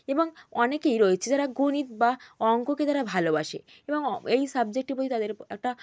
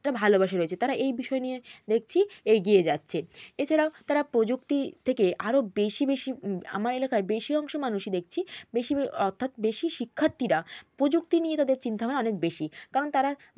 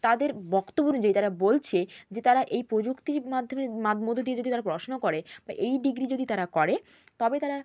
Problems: constant background noise